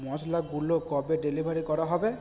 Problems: background sounds at intervals